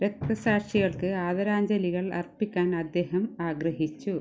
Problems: low volume